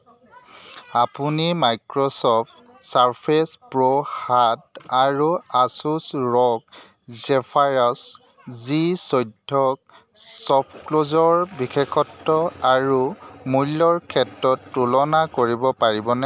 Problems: constant background noise, background conversations at intervals